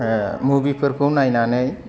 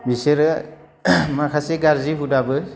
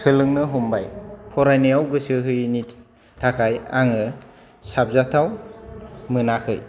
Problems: none marked